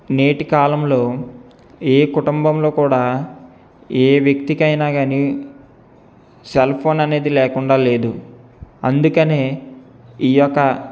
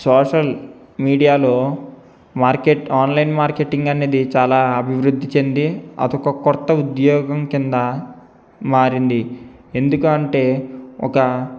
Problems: none marked